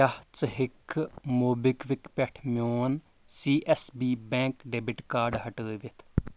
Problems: none marked